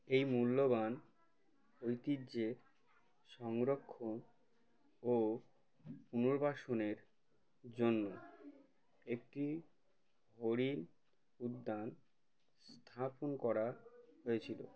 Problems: constant background noise, background conversations at intervals